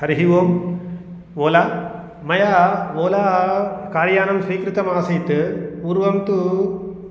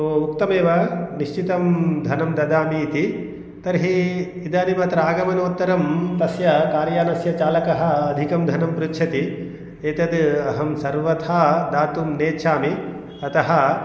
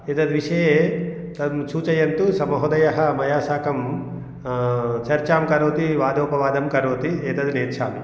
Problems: none marked